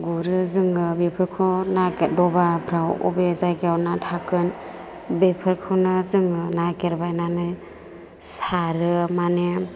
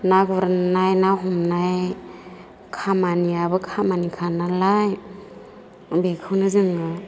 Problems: constant background noise